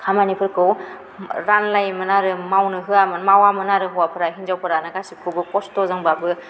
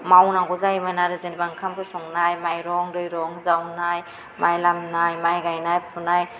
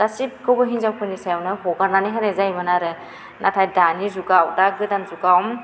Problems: none marked